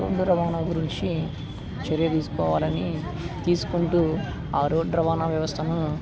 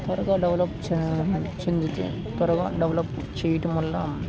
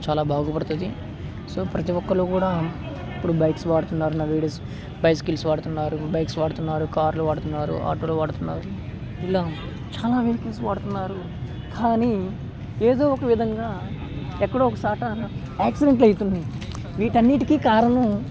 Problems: constant background noise